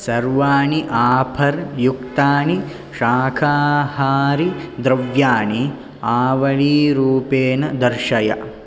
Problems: none marked